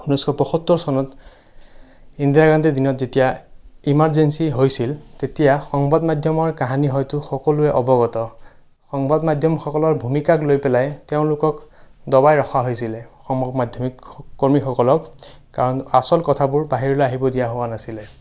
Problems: none marked